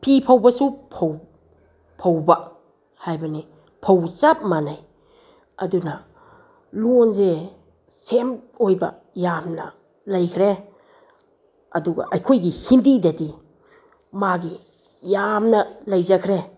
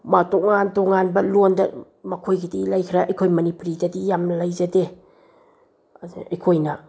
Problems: none marked